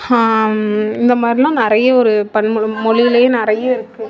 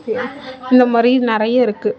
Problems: continuous background conversations